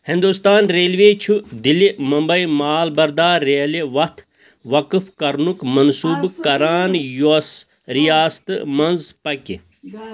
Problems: none marked